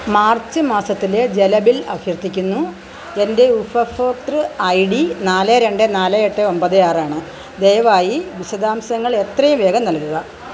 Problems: none marked